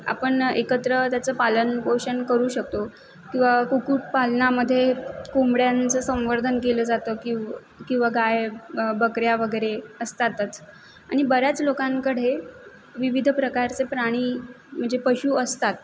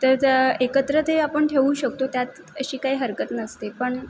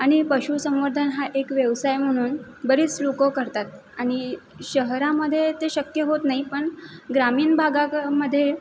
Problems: constant background noise